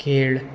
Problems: constant background noise